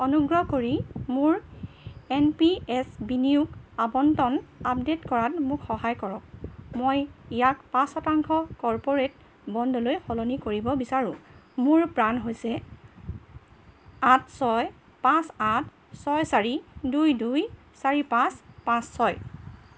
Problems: background sounds at intervals